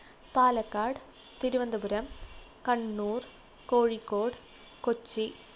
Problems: low volume